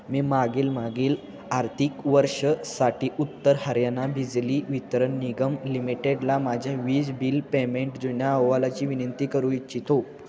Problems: constant background noise, background conversations at intervals